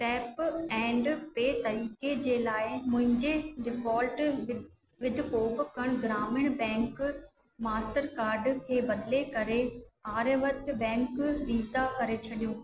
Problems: constant background noise, echo